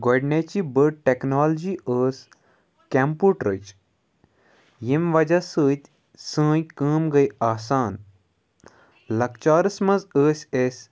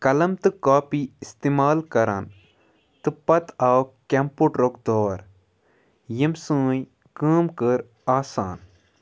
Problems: background sounds at intervals